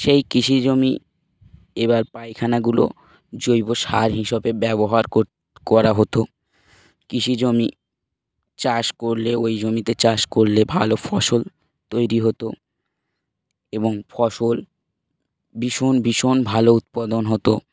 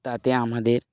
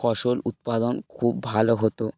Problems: background sounds at intervals